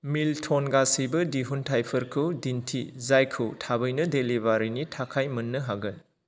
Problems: none marked